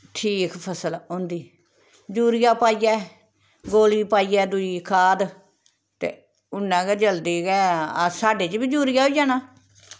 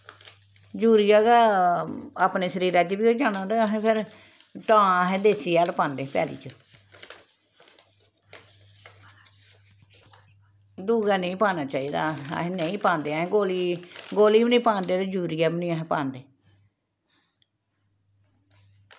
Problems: background sounds at intervals